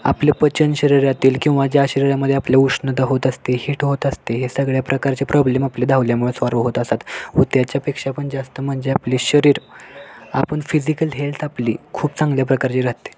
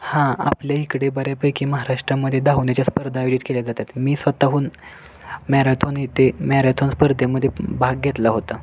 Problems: constant background noise